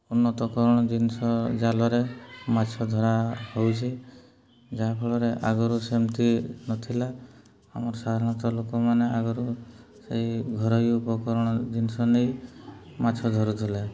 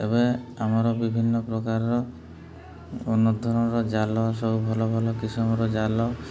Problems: background conversations at intervals, low volume